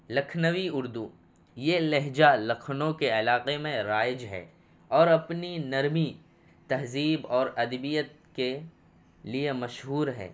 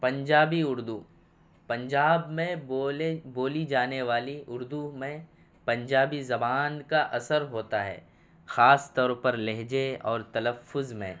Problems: none marked